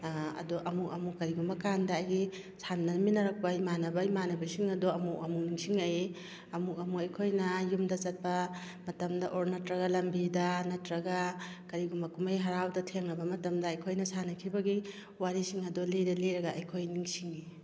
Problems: background sounds at intervals